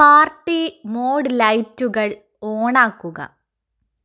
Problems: none marked